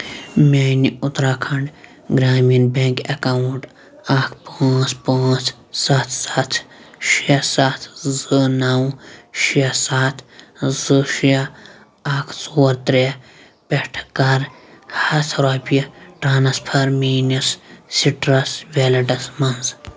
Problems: constant background noise, background conversations at intervals